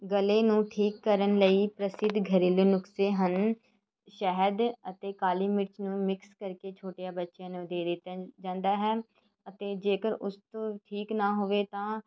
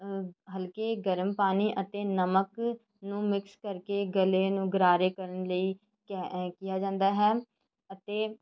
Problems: none marked